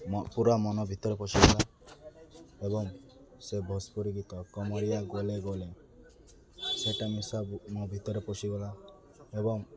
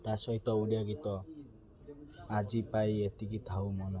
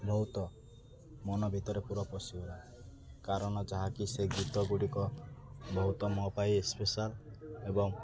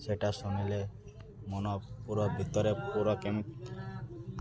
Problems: constant background noise, continuous background conversations